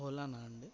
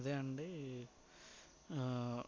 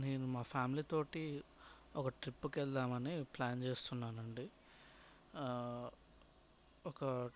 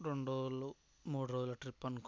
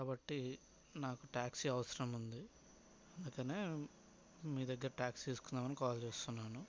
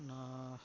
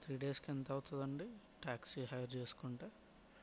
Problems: background sounds at intervals, background conversations at intervals, low volume